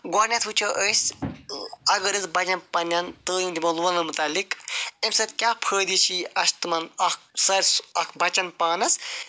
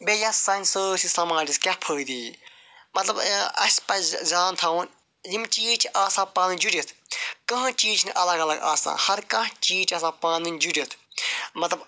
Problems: none marked